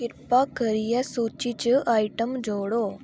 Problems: none marked